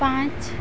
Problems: constant background noise